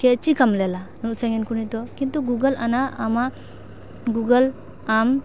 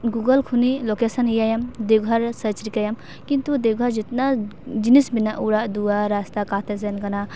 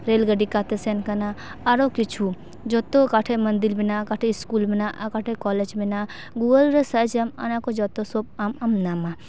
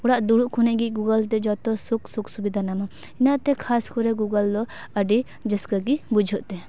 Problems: background sounds at intervals